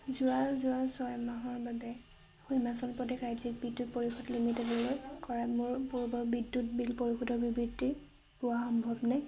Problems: constant background noise